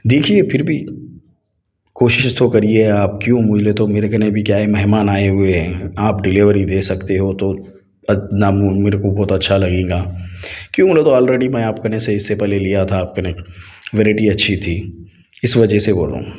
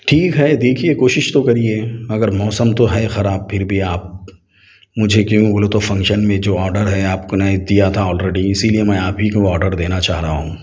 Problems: none marked